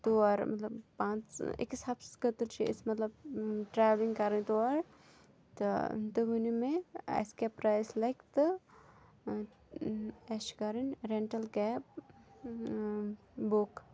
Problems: none marked